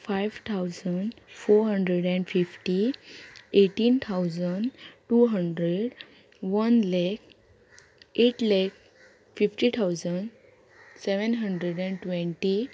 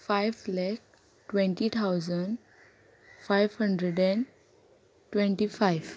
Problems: constant background noise